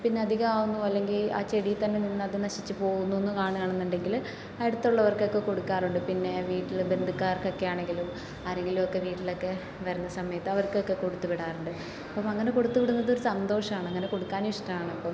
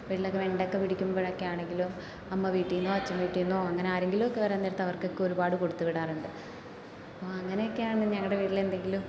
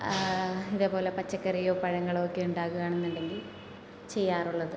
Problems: constant background noise, low volume